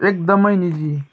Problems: continuous background conversations